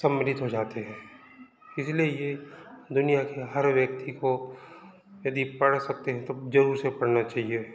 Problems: background sounds at intervals, background conversations at intervals